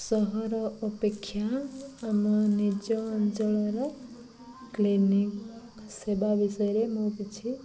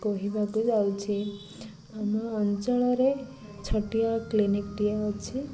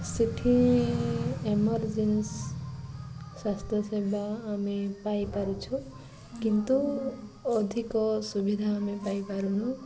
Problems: none marked